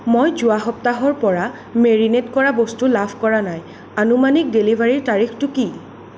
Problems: none marked